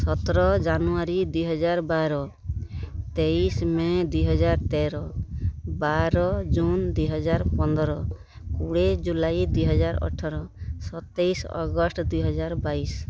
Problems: none marked